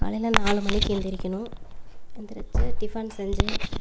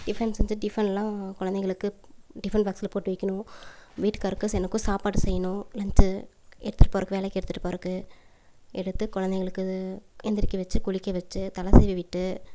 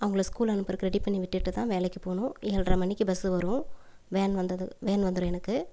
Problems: none marked